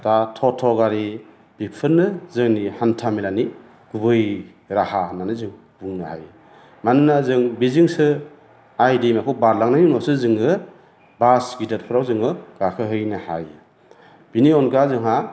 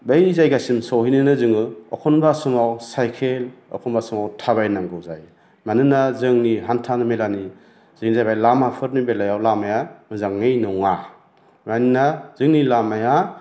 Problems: none marked